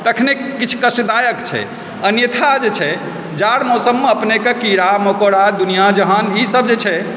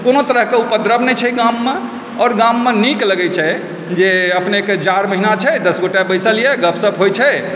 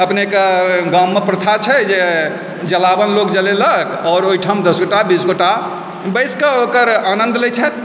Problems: background sounds at intervals